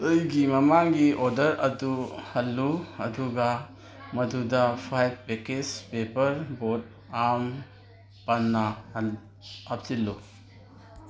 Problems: none marked